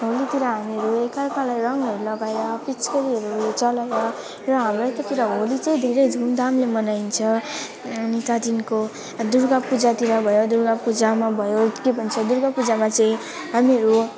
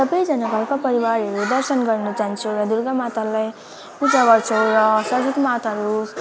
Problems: constant background noise, background conversations at intervals